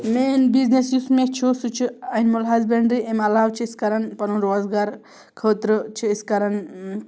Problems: background sounds at intervals